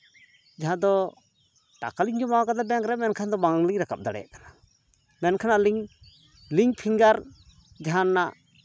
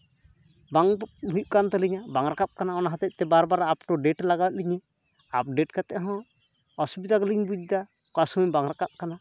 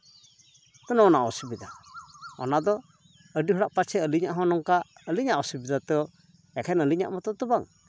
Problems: none marked